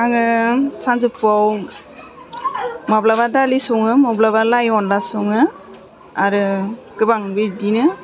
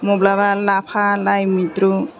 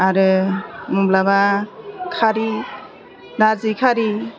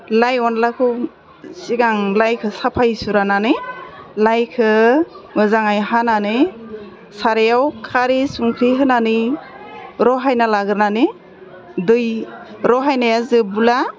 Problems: constant background noise